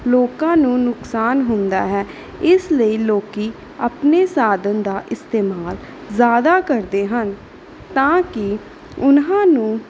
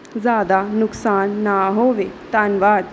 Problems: none marked